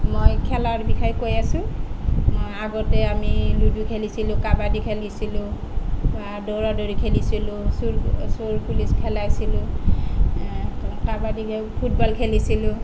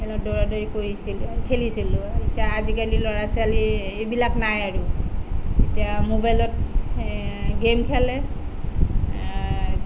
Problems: none marked